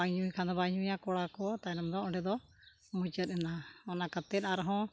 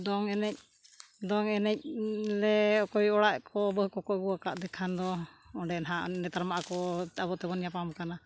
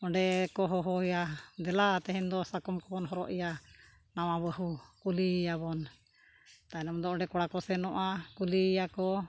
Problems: none marked